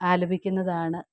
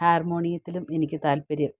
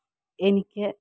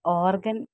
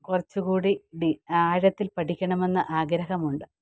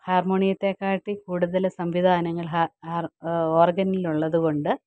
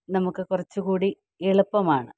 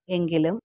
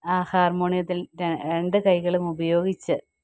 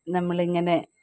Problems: background sounds at intervals